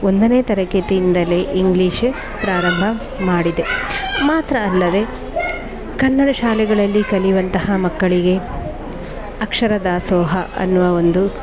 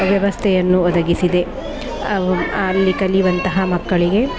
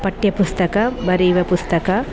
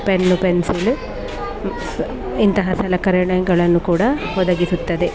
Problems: background sounds at intervals